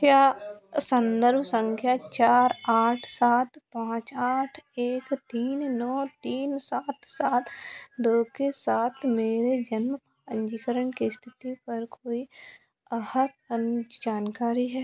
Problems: background sounds at intervals